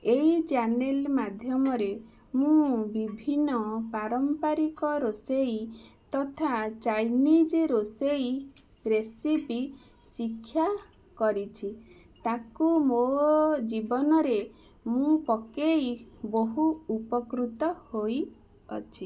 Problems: constant background noise